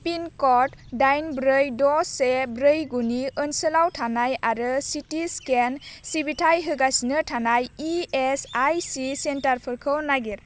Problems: low volume